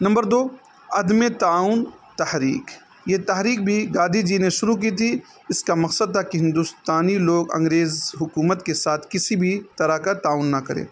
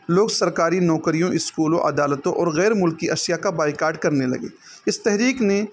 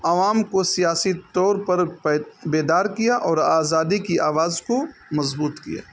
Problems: constant background noise